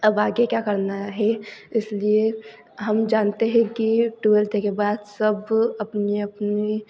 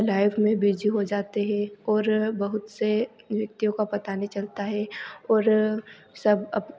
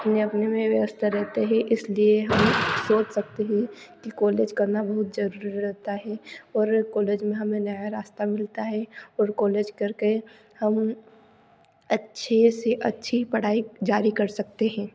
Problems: background sounds at intervals